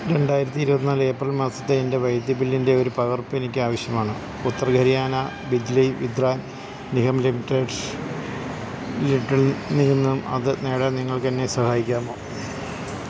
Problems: none marked